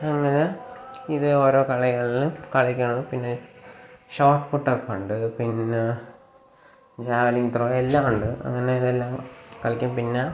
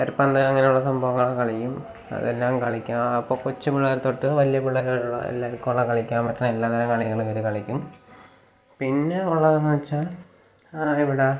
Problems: constant background noise